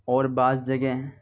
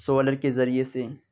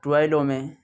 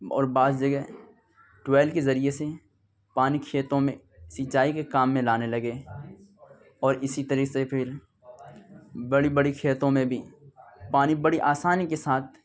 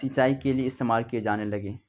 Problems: background conversations at intervals